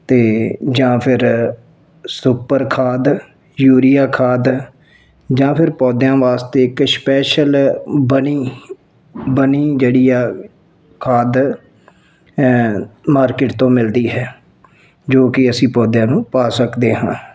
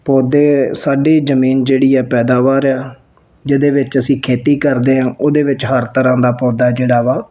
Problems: none marked